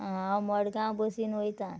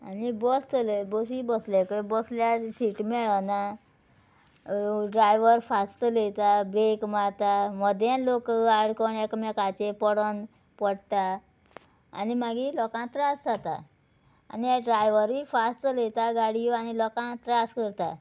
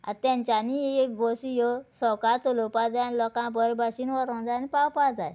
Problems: none marked